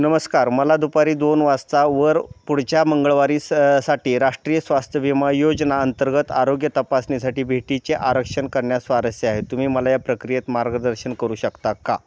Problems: constant background noise